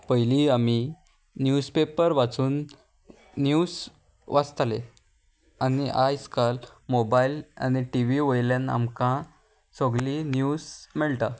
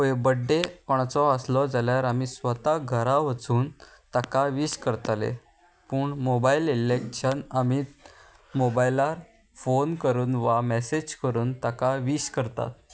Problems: constant background noise